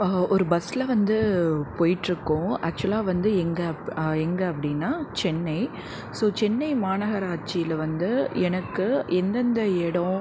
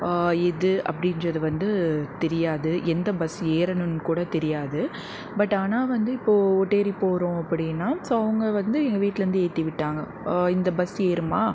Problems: background conversations at intervals